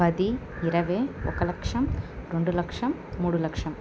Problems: constant background noise